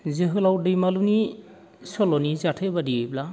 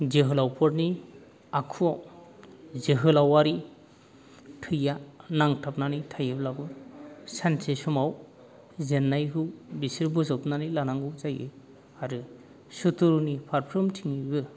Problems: none marked